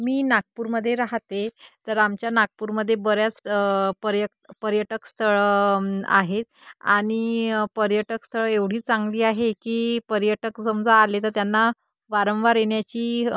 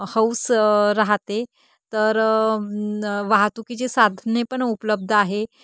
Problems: constant background noise